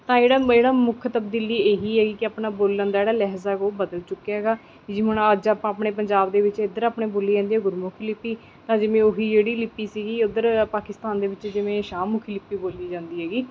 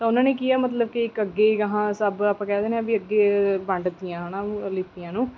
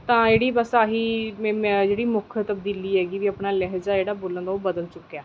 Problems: background sounds at intervals